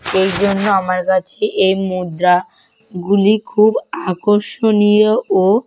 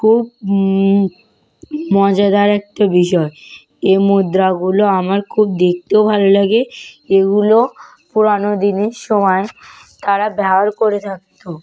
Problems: constant background noise